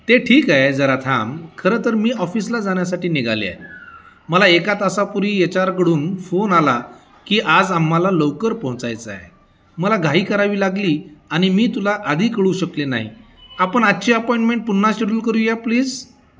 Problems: constant background noise, continuous background conversations